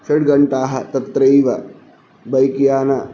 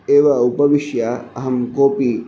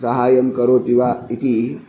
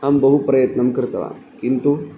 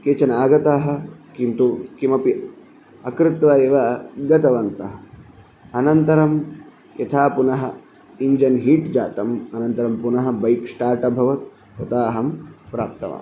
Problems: none marked